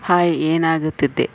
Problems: none marked